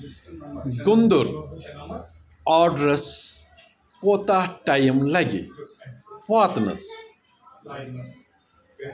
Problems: background conversations at intervals